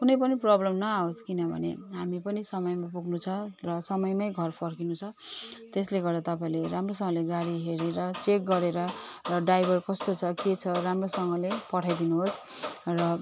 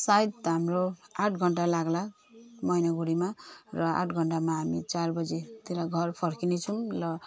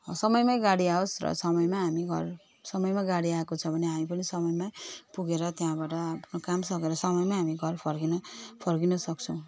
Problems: constant background noise